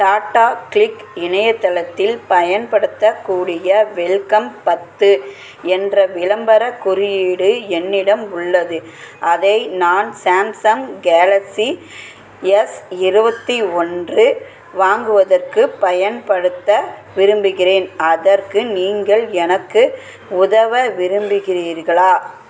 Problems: constant background noise, background conversations at intervals